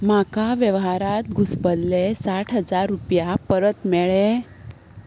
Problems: none marked